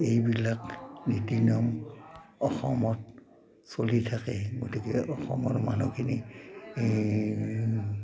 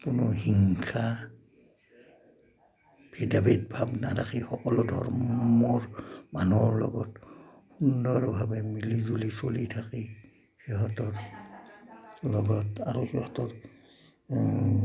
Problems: constant background noise